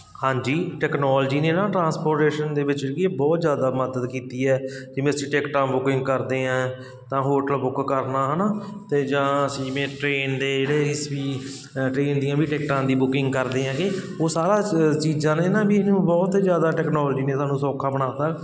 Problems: constant background noise